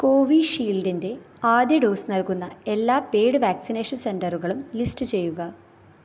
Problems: none marked